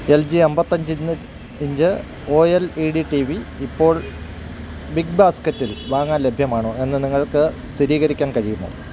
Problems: constant background noise